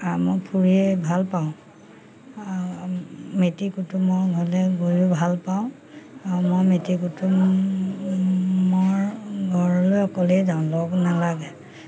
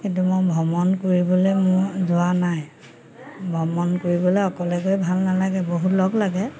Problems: constant background noise